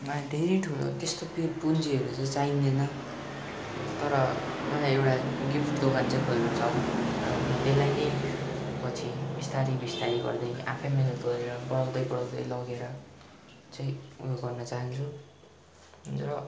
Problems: constant background noise